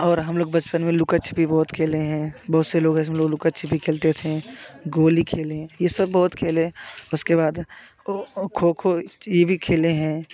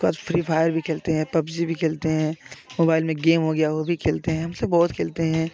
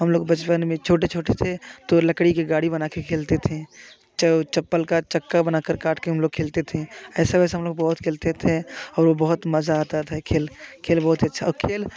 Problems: none marked